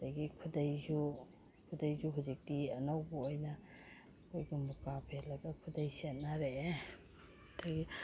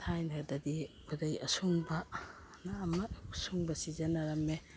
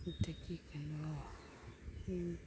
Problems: background sounds at intervals